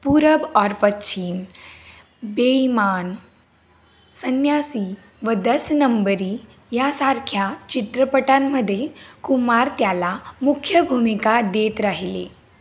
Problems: constant background noise